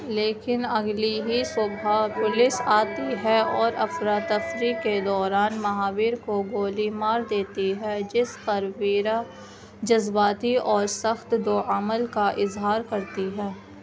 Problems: constant background noise